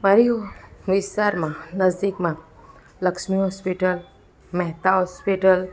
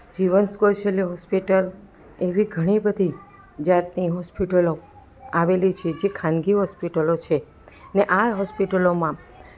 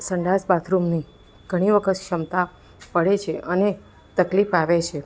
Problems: constant background noise